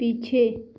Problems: constant background noise